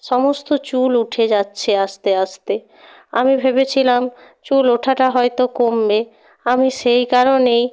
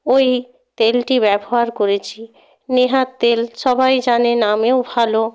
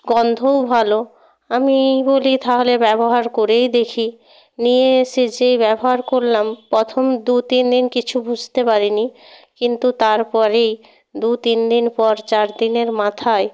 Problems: background sounds at intervals